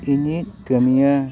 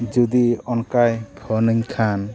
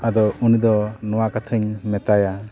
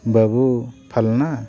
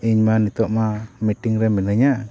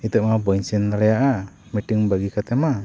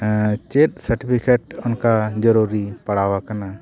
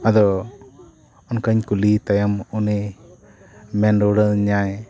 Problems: background sounds at intervals, continuous background conversations